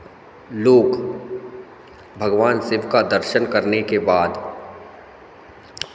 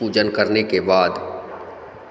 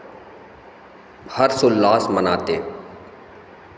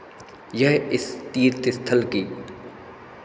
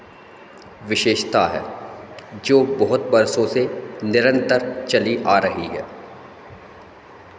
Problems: constant background noise